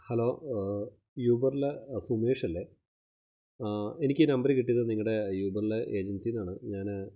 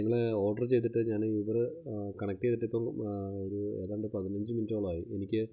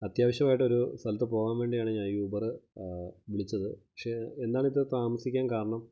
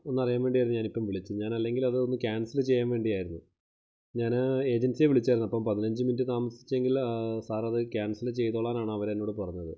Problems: low volume